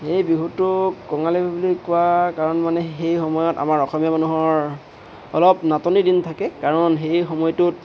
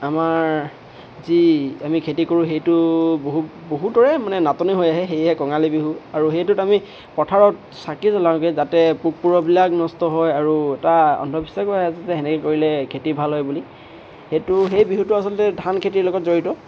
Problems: constant background noise